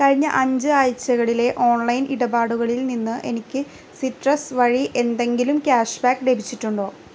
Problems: constant background noise